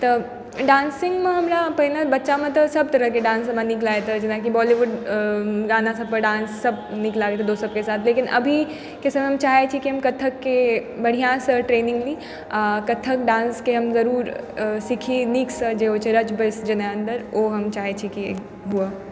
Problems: background sounds at intervals